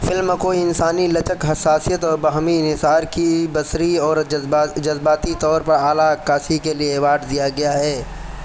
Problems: constant background noise